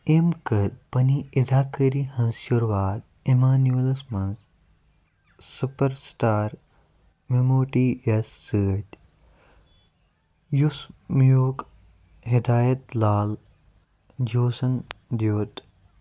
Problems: none marked